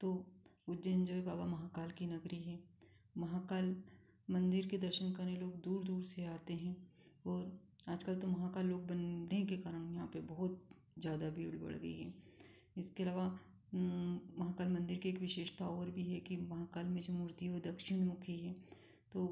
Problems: none marked